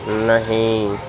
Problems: constant background noise, background conversations at intervals